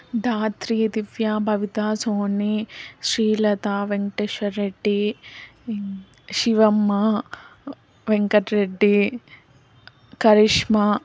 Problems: background sounds at intervals